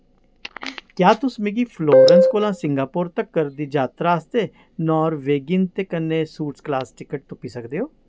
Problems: constant background noise